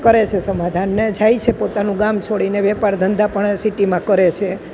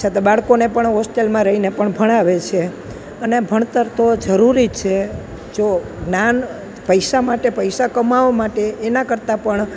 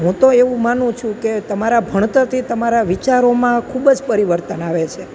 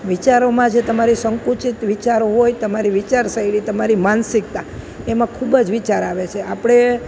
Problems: constant background noise